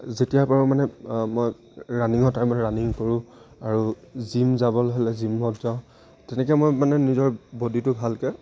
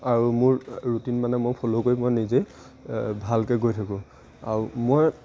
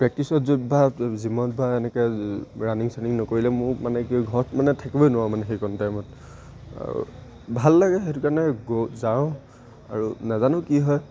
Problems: none marked